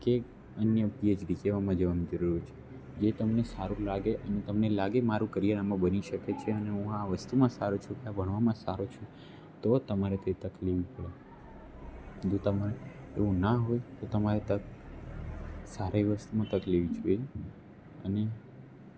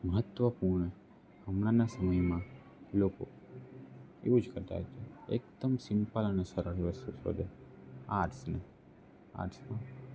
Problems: none marked